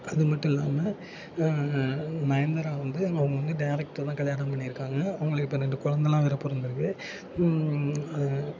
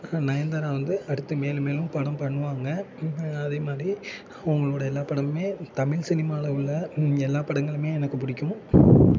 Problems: constant background noise